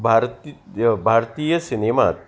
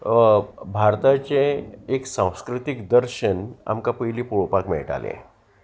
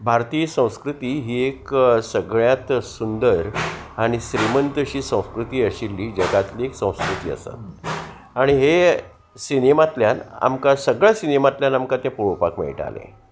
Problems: constant background noise